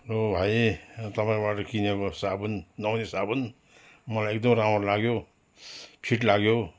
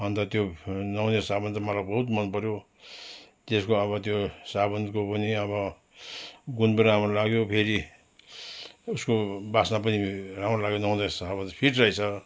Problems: constant background noise